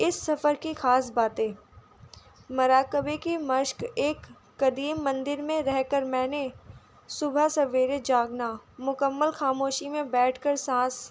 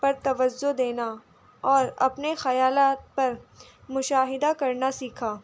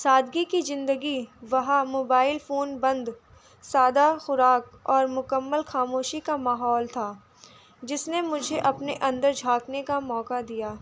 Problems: none marked